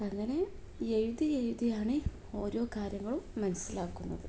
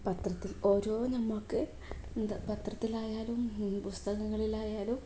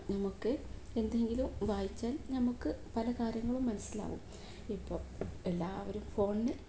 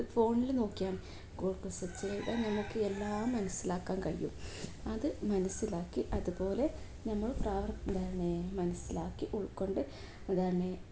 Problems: none marked